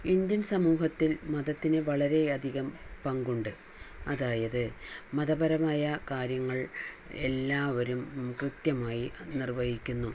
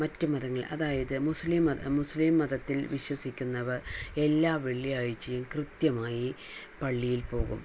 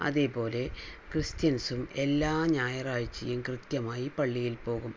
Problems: none marked